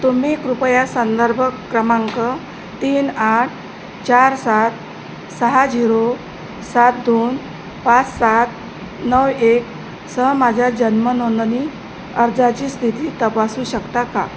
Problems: constant background noise